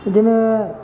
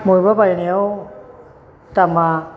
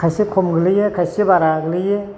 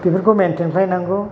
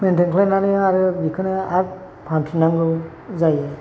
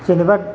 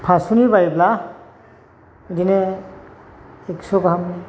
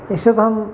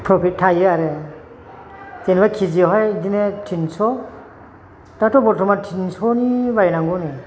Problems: constant background noise